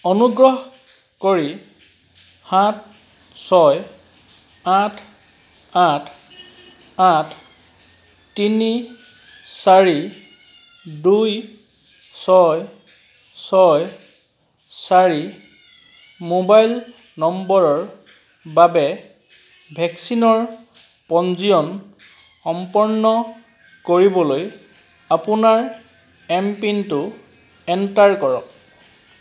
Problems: background sounds at intervals